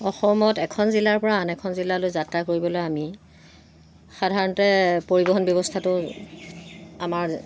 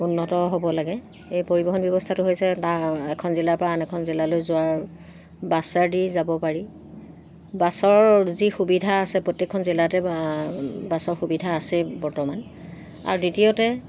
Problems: constant background noise